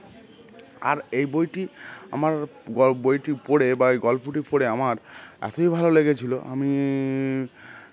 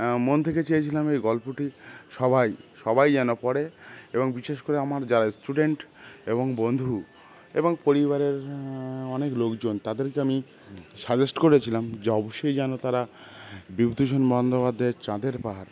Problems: constant background noise, background conversations at intervals